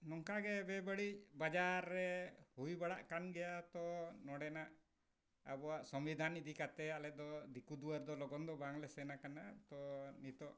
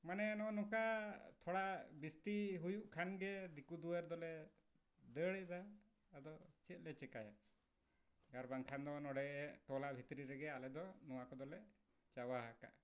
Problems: background sounds at intervals, low volume